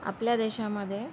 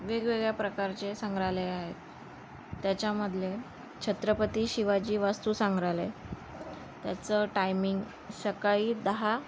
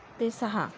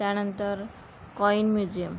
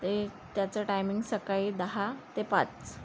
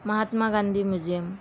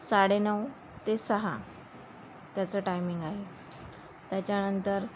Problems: none marked